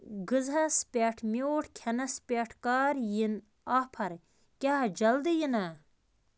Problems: constant background noise